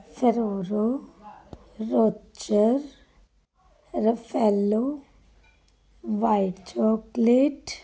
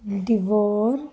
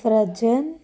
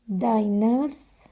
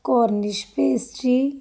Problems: continuous background conversations